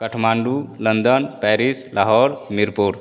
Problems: none marked